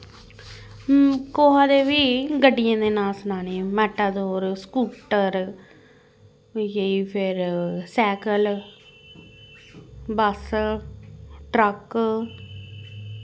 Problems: constant background noise